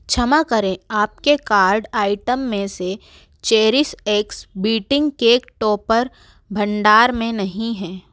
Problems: background sounds at intervals